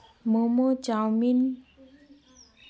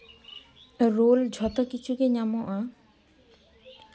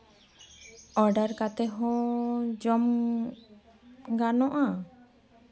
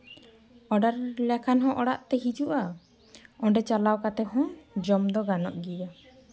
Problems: constant background noise, background conversations at intervals